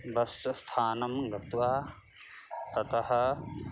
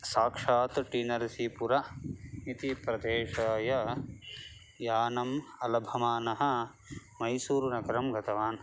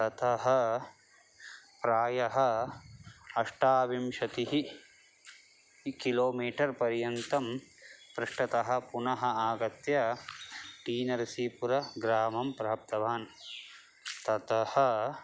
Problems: none marked